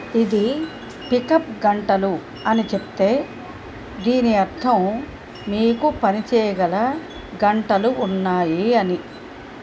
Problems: background sounds at intervals